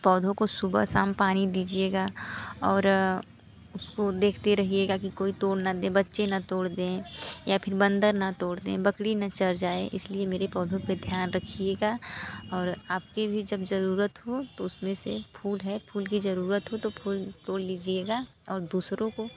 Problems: constant background noise, background conversations at intervals